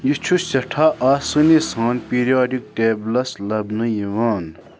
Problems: none marked